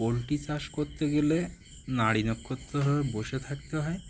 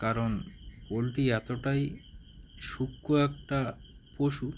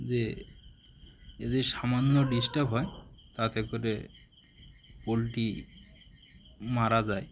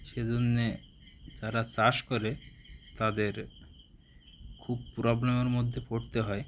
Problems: constant background noise